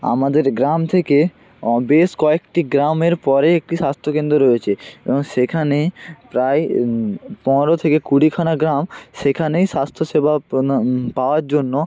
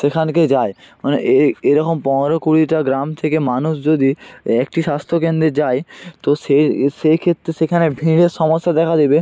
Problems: constant background noise, continuous background conversations